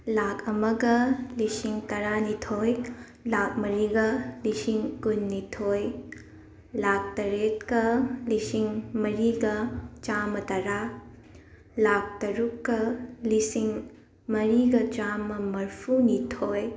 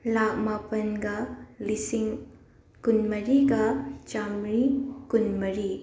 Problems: background conversations at intervals